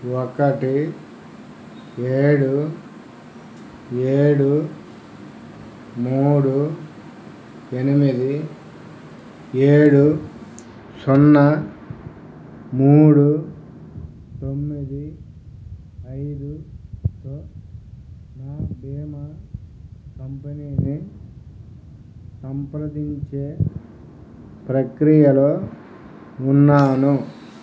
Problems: low volume